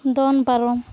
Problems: background sounds at intervals